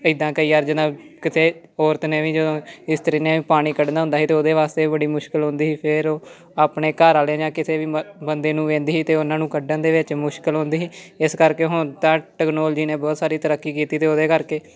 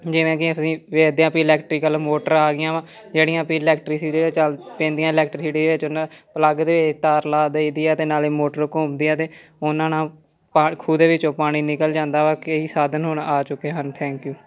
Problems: background sounds at intervals, continuous background conversations